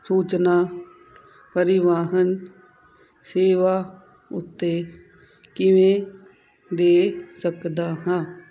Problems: constant background noise